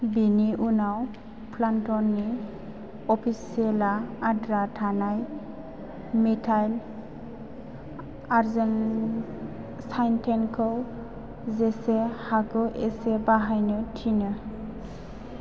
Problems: constant background noise